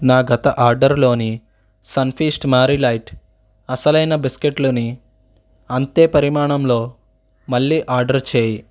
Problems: none marked